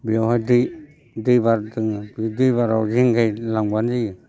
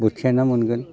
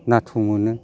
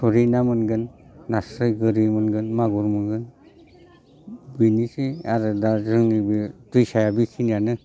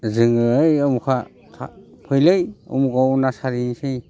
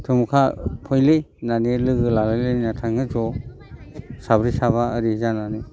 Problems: constant background noise